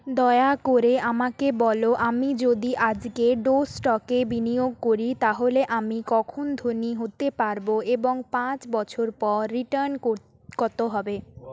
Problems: none marked